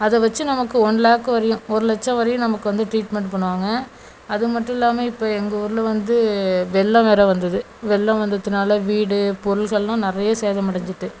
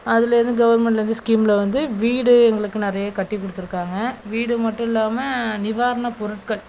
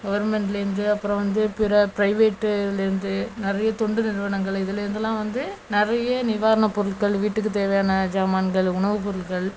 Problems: none marked